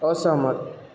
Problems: none marked